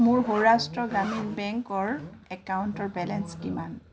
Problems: background sounds at intervals